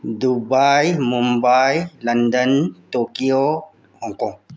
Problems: low volume